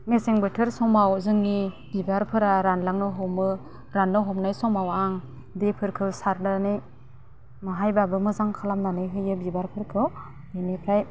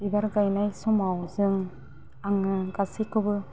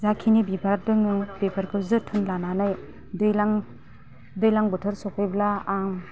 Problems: low volume